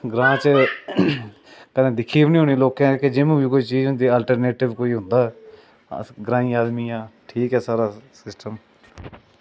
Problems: constant background noise